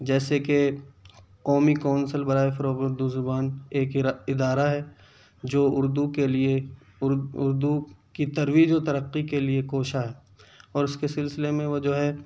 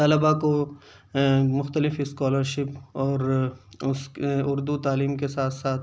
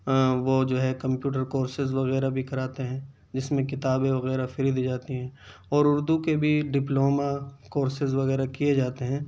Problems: none marked